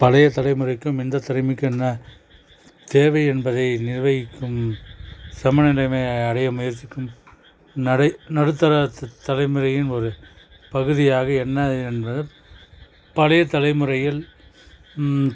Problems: none marked